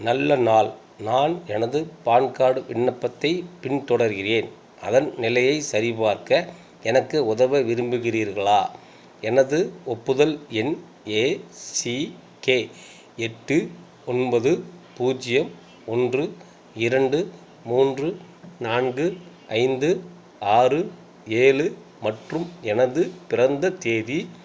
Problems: constant background noise